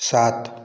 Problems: none marked